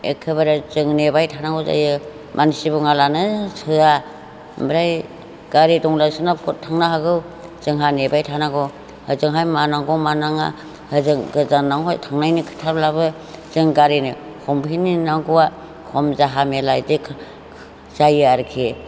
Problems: background conversations at intervals